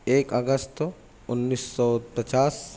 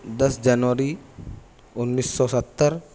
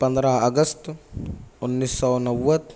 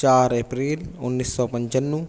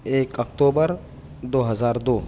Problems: none marked